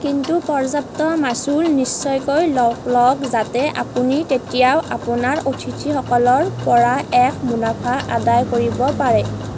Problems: constant background noise